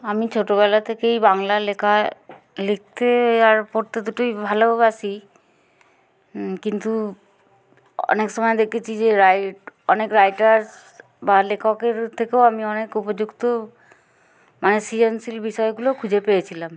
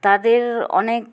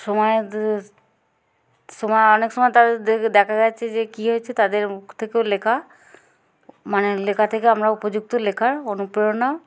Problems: background sounds at intervals